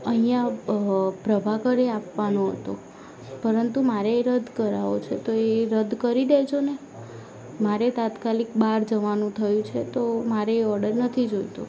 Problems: constant background noise